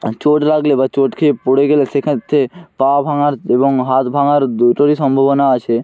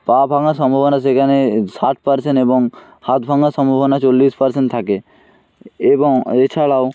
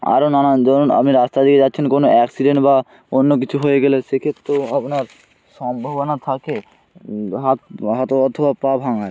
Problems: none marked